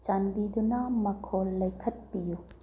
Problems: low volume